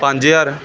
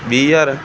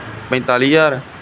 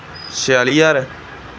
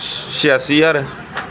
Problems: constant background noise, background conversations at intervals